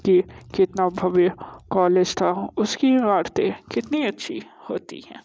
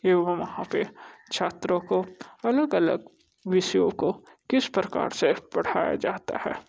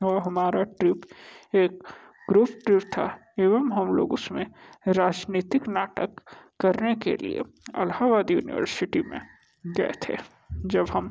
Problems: constant background noise